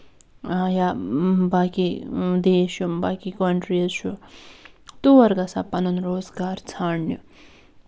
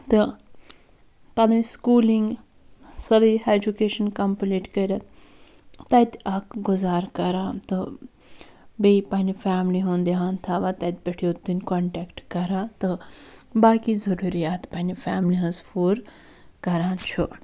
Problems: background sounds at intervals